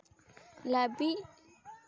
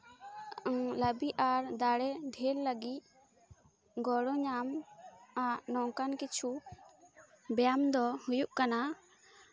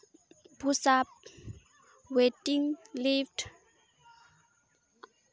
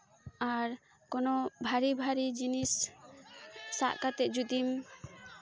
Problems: constant background noise, continuous background conversations